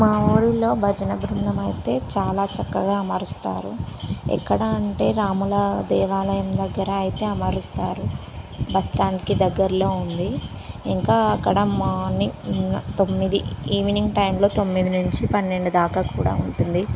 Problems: constant background noise